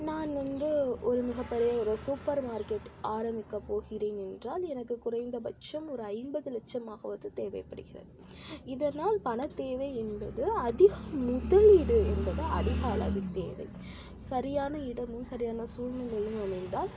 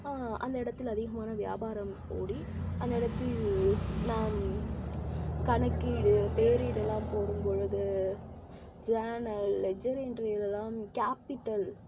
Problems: constant background noise, low volume